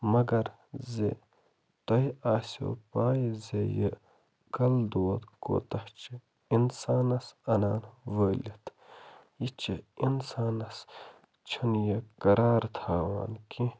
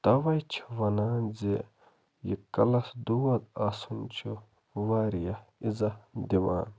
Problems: none marked